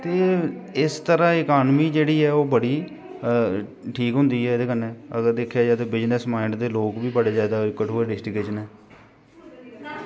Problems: background sounds at intervals